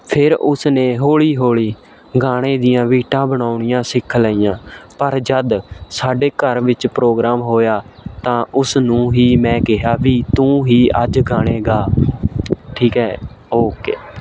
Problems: constant background noise